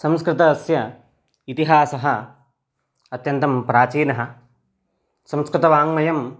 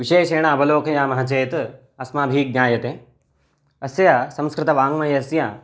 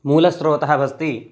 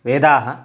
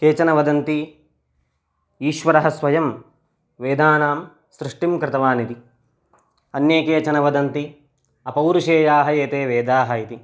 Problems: none marked